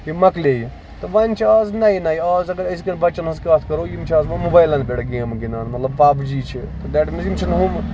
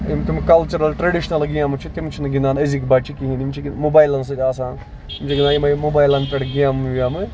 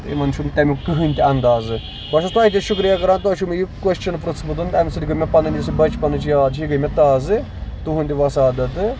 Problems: constant background noise, background conversations at intervals